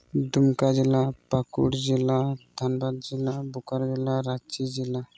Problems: none marked